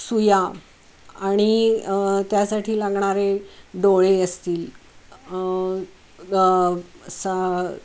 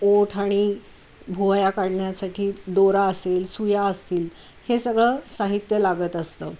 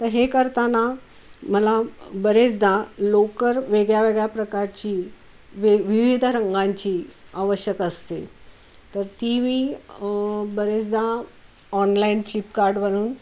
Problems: constant background noise